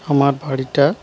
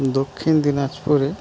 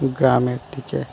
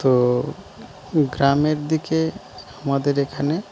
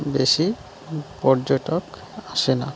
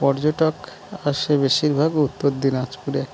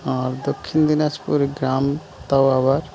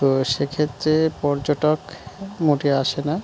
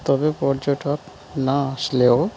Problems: none marked